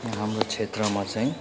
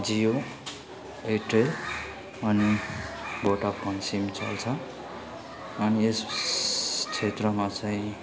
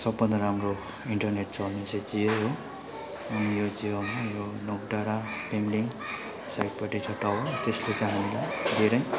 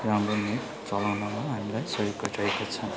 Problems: constant background noise, low volume